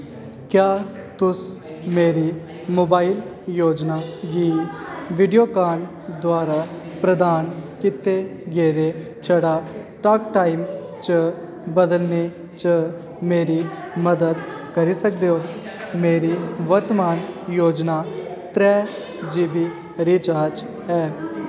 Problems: constant background noise